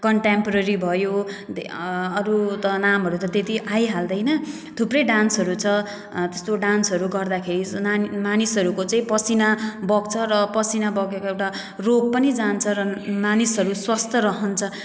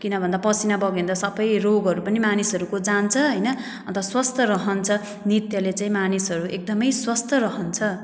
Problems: none marked